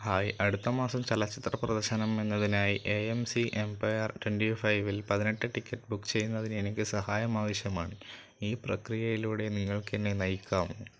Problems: none marked